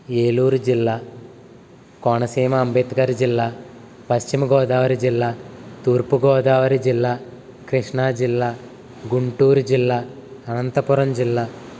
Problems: constant background noise